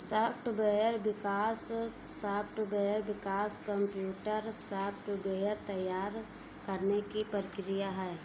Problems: background sounds at intervals